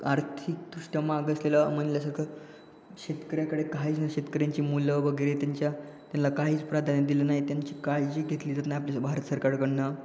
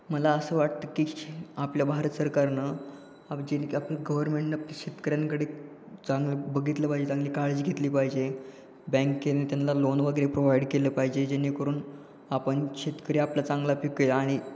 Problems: constant background noise